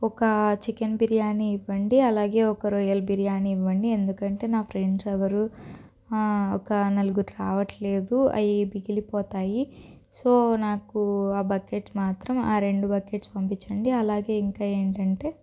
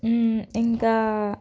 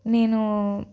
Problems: none marked